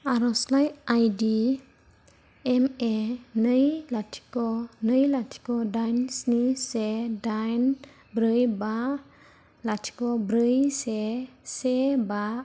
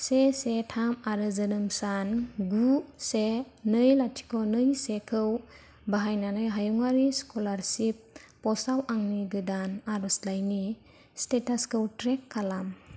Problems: low volume